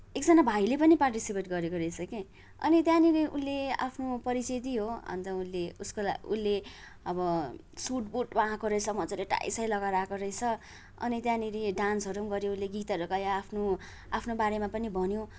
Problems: background sounds at intervals